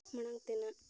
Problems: background sounds at intervals, low volume